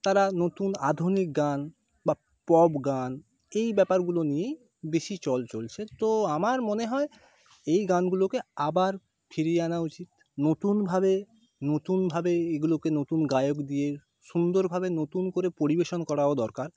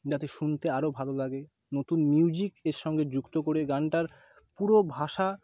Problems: background conversations at intervals